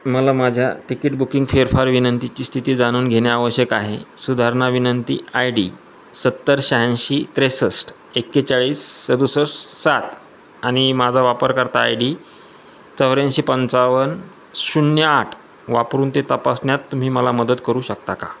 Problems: constant background noise, background conversations at intervals